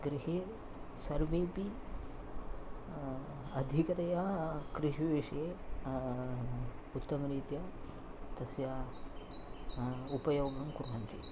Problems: background sounds at intervals